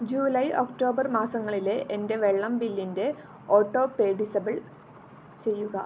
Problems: none marked